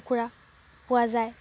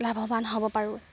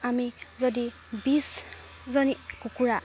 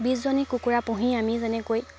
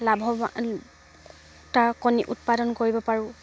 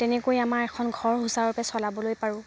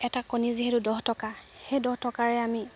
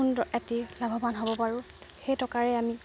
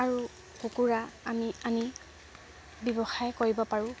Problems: background sounds at intervals